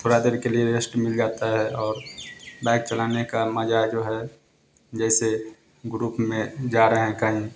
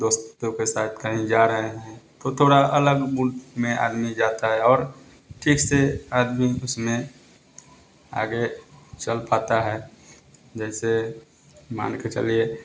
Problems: none marked